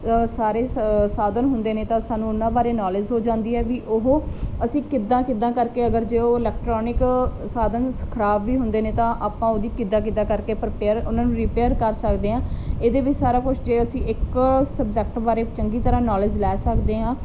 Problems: none marked